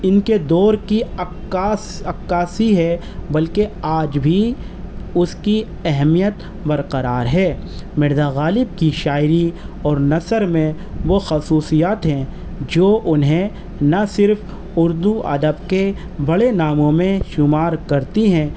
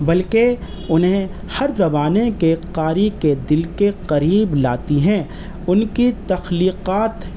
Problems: constant background noise